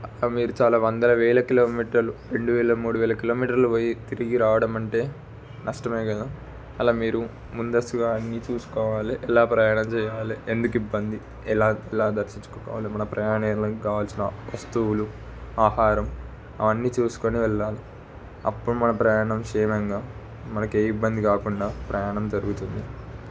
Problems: constant background noise